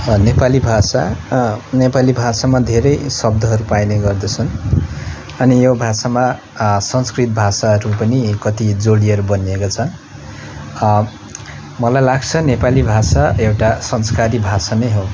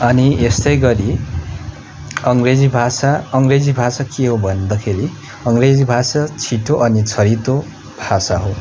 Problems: constant background noise